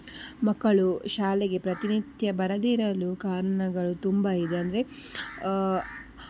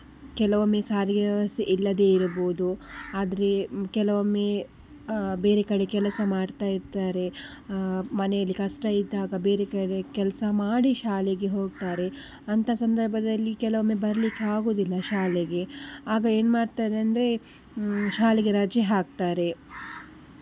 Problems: none marked